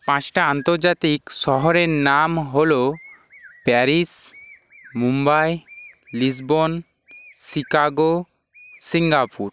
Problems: constant background noise